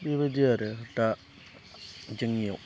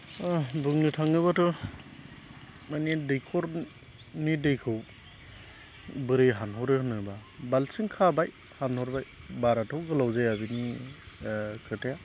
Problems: constant background noise